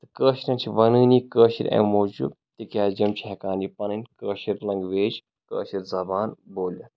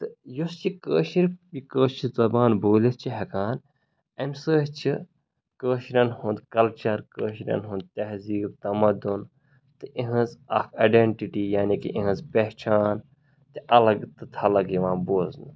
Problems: background sounds at intervals